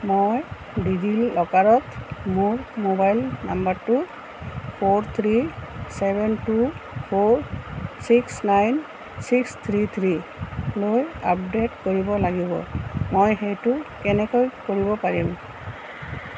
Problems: constant background noise